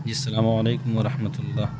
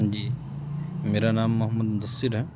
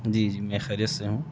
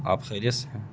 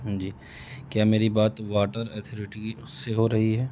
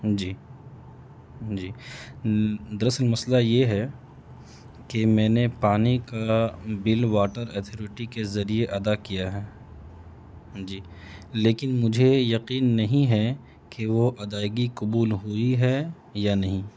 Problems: constant background noise